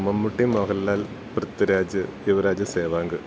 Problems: constant background noise